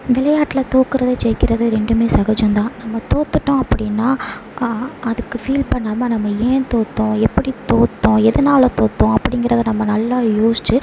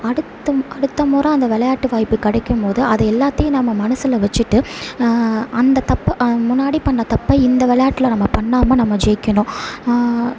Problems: background sounds at intervals